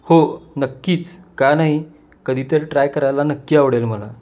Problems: constant background noise